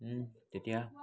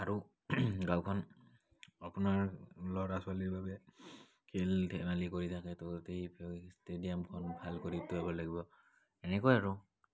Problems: background sounds at intervals, background conversations at intervals